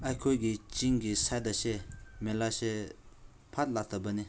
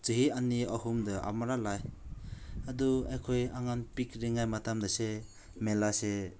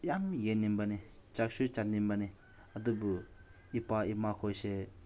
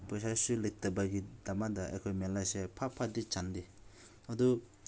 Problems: none marked